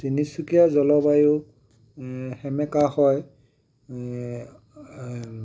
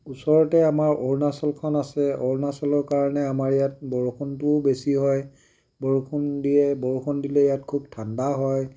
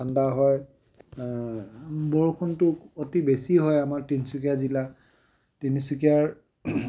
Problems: none marked